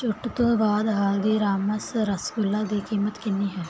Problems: none marked